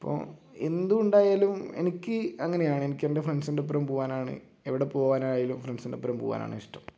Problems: low volume